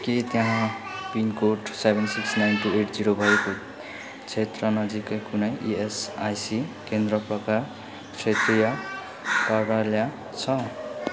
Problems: constant background noise, continuous background conversations